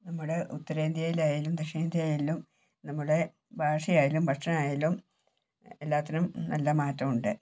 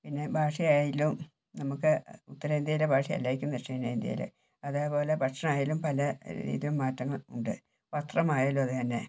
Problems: low volume